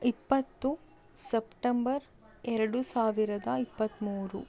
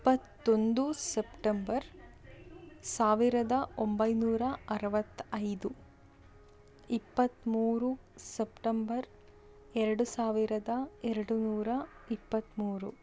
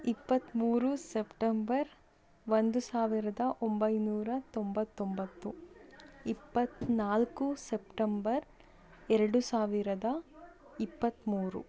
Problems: none marked